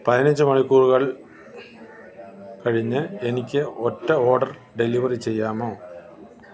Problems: constant background noise